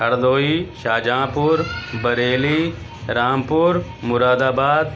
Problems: constant background noise, background conversations at intervals